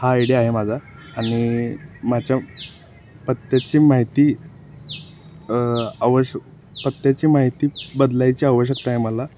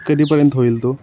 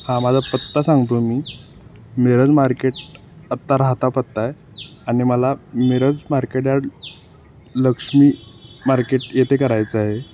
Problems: constant background noise